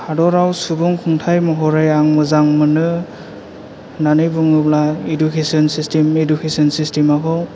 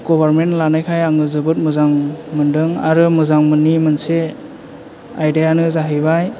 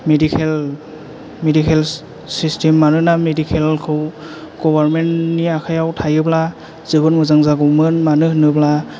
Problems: none marked